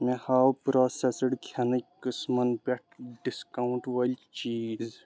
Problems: background sounds at intervals